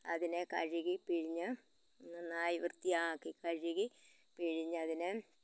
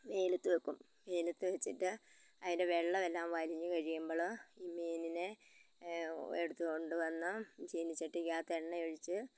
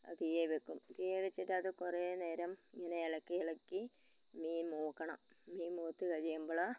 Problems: background conversations at intervals, low volume